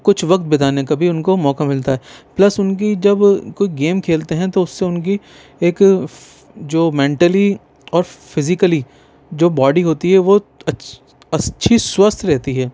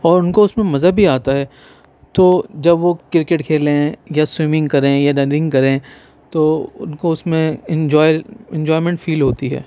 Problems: none marked